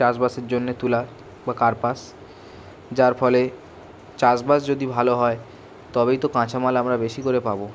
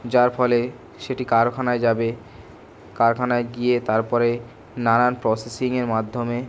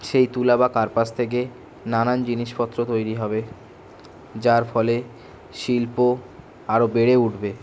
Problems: none marked